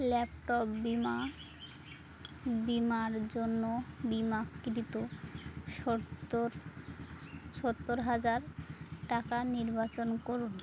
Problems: constant background noise